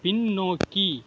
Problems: background sounds at intervals